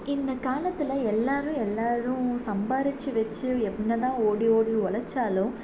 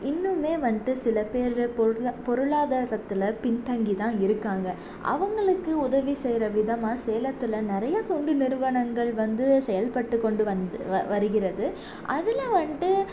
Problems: constant background noise